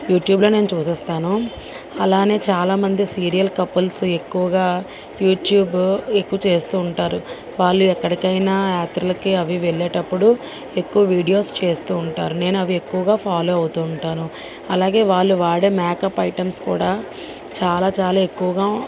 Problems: constant background noise, background conversations at intervals